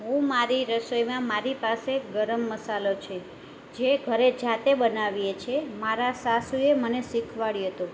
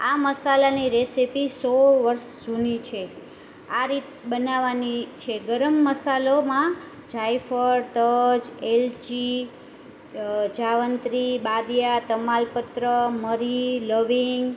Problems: constant background noise